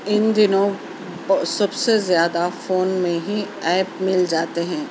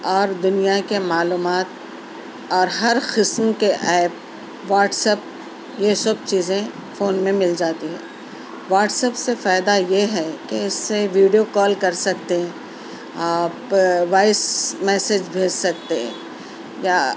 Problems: constant background noise, background conversations at intervals